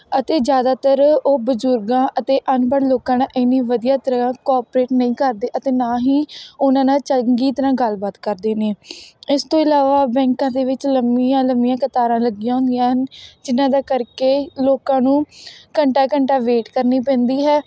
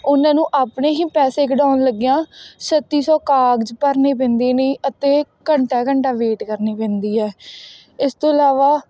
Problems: none marked